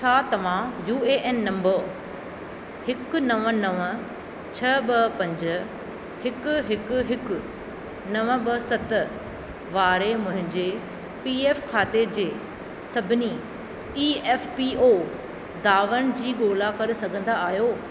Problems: none marked